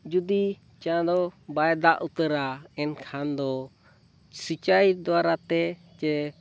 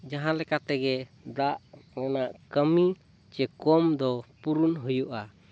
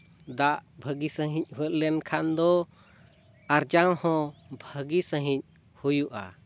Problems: none marked